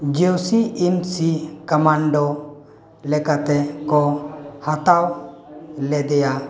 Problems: constant background noise, background conversations at intervals